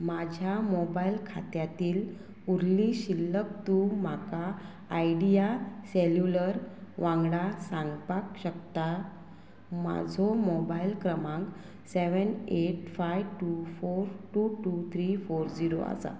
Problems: constant background noise